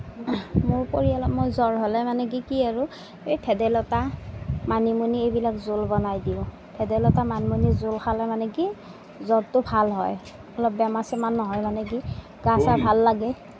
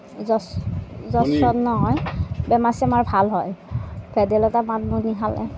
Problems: none marked